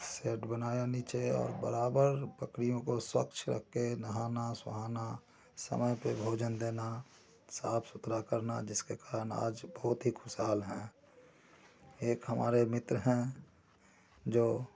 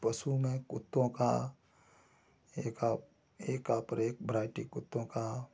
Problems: constant background noise, low volume